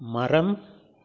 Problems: none marked